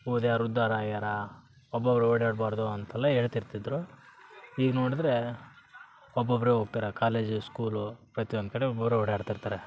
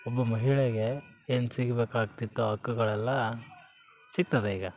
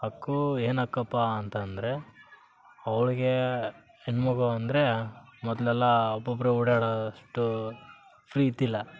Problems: background sounds at intervals